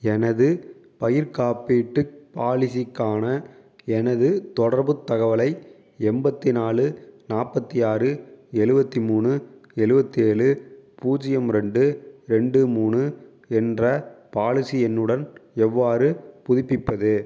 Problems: background sounds at intervals